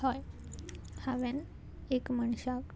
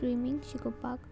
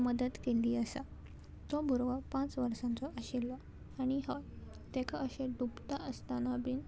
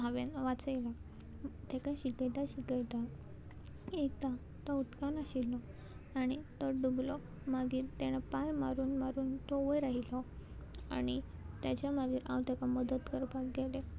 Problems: constant background noise, background conversations at intervals